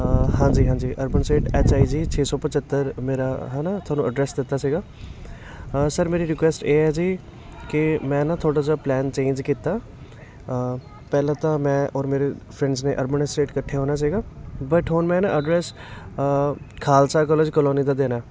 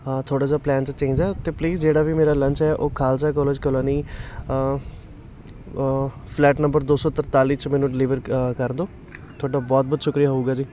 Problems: constant background noise, continuous background conversations